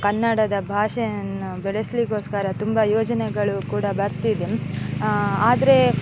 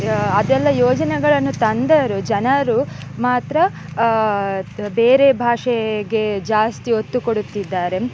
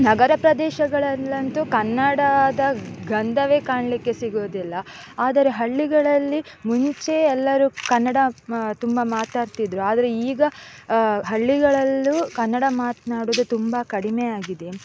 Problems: constant background noise